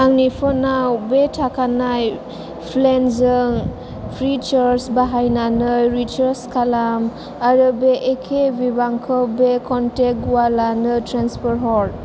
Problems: none marked